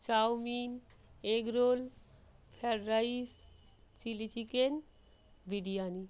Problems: background sounds at intervals